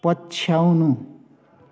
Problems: background sounds at intervals